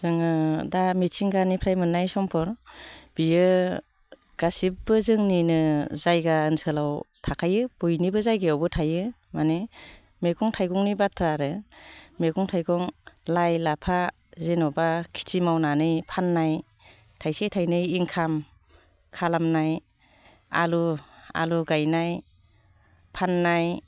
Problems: constant background noise